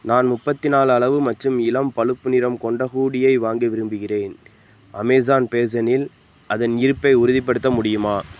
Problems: background sounds at intervals